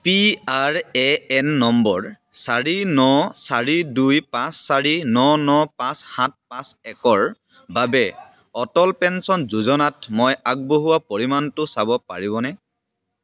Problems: background sounds at intervals, background conversations at intervals